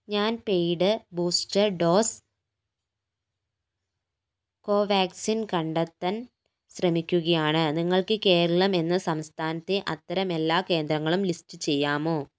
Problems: none marked